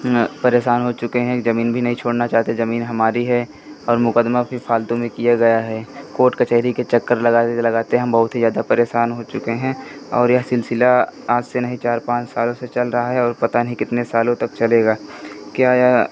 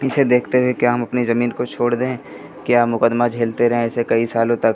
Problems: constant background noise